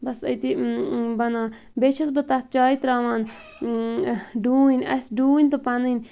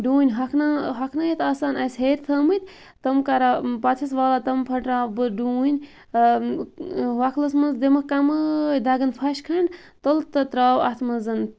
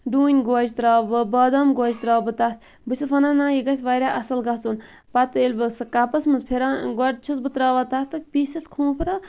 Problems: background sounds at intervals